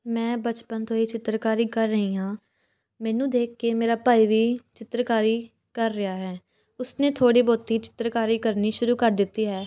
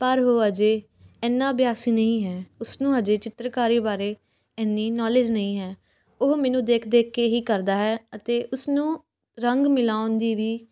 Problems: background sounds at intervals, background conversations at intervals